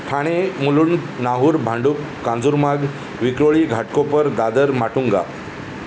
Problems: constant background noise